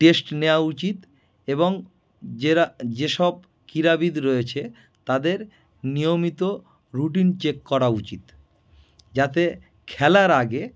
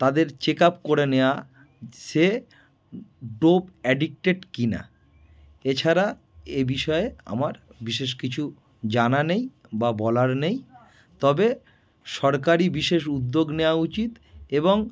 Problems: background sounds at intervals